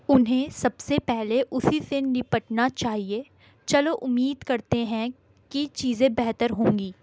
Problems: background sounds at intervals